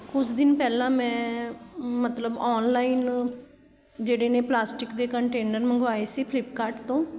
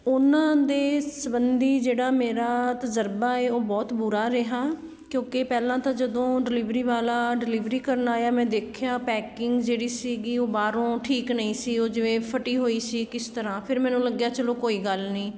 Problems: none marked